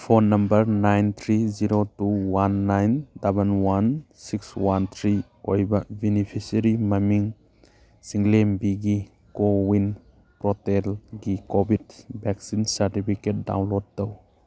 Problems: none marked